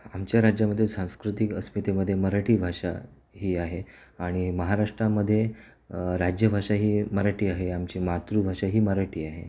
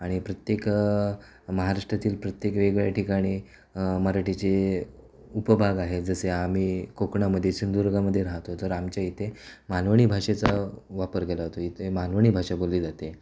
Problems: none marked